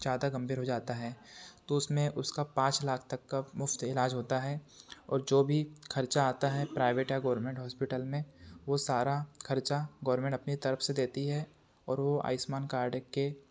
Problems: none marked